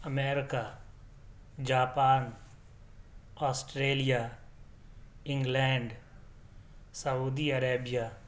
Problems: none marked